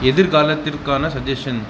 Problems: none marked